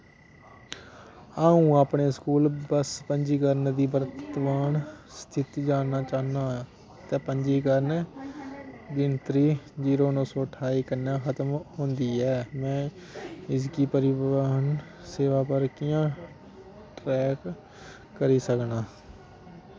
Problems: constant background noise